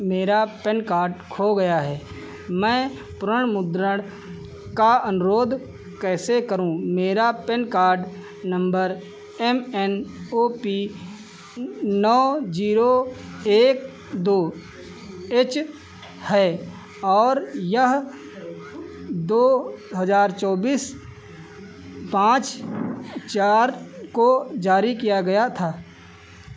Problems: constant background noise